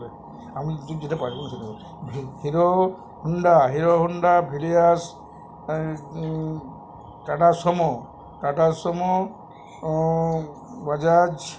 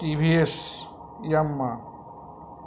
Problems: none marked